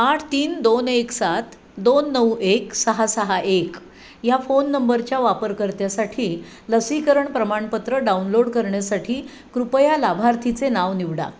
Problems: constant background noise, background conversations at intervals